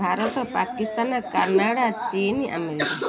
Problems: background sounds at intervals, continuous background conversations